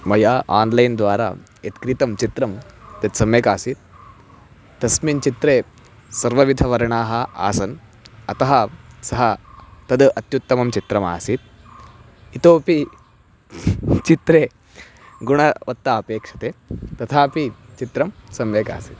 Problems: none marked